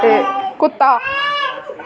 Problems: background sounds at intervals